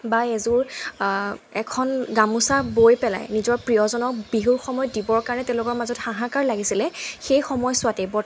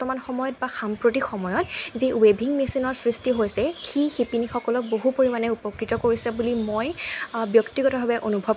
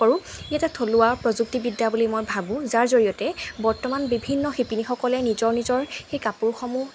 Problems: constant background noise